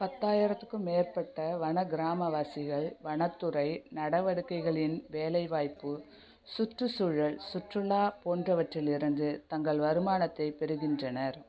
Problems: none marked